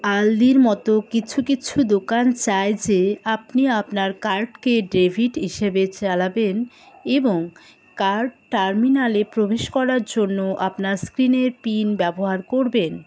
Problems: constant background noise, background conversations at intervals